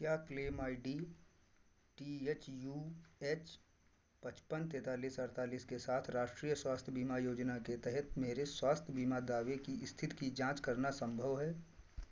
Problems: none marked